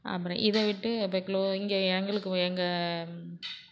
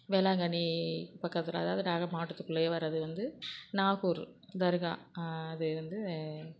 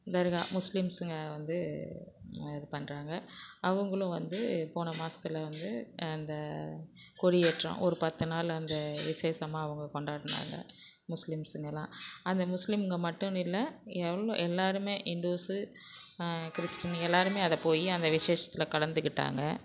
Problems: constant background noise